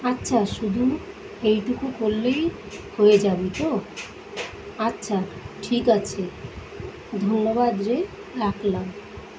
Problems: constant background noise